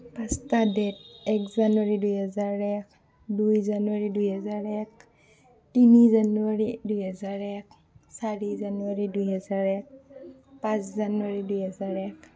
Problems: continuous background conversations